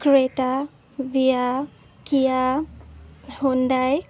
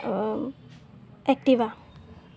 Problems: none marked